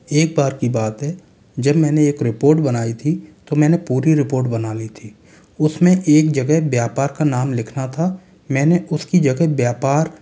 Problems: background sounds at intervals